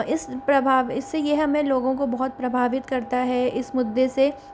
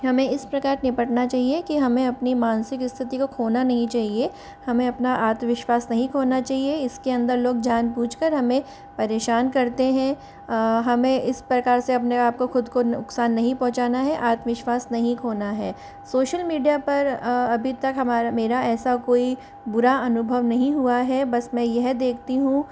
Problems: constant background noise